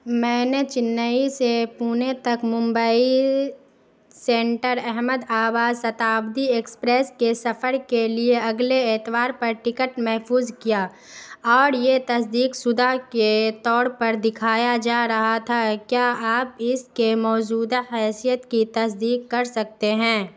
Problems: constant background noise